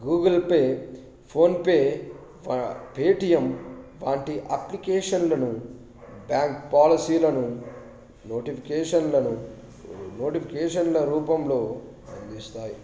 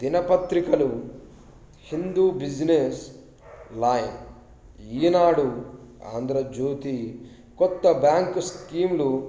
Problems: background sounds at intervals